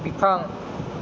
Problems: low volume